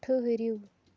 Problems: low volume